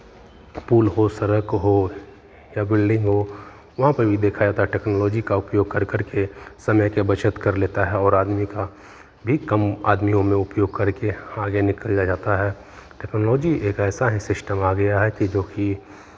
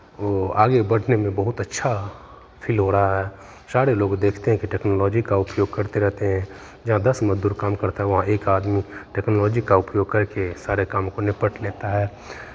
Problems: constant background noise, continuous background conversations